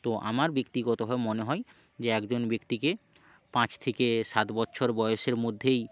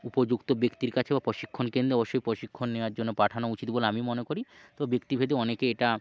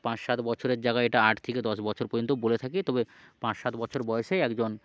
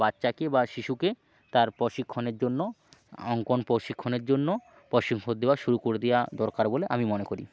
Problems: background sounds at intervals